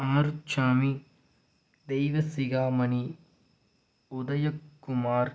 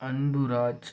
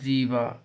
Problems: low volume